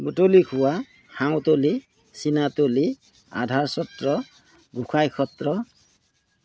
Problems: none marked